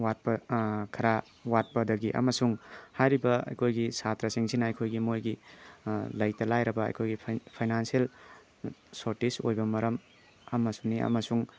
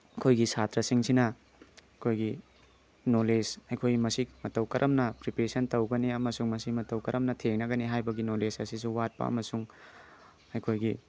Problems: background sounds at intervals